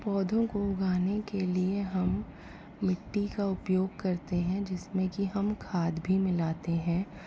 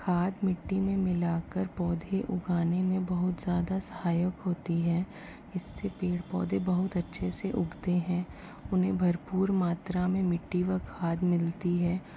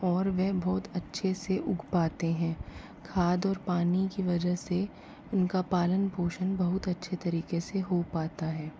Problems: constant background noise, low volume